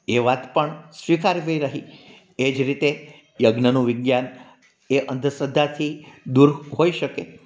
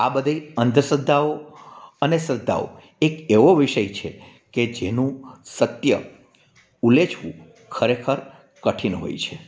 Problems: background sounds at intervals